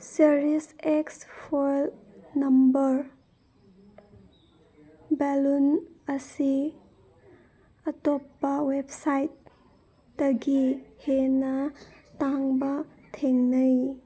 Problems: background sounds at intervals, background conversations at intervals